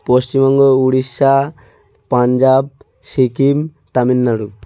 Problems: constant background noise